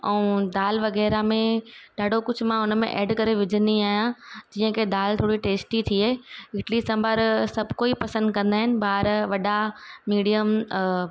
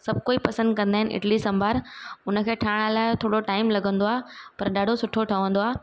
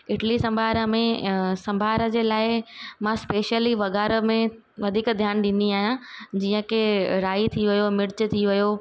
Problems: none marked